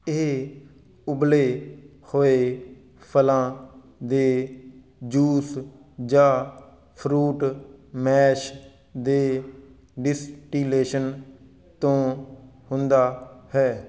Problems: background sounds at intervals